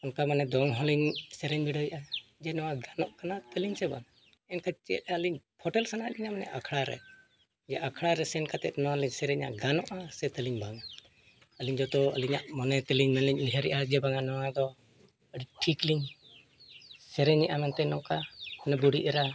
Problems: background conversations at intervals